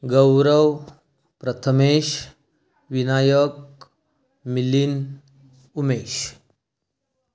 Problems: continuous background conversations